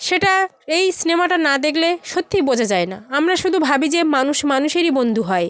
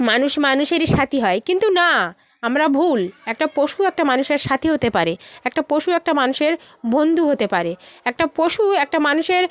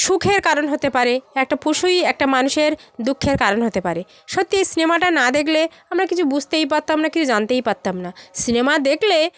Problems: none marked